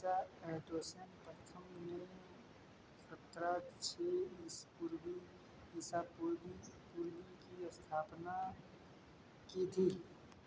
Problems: background sounds at intervals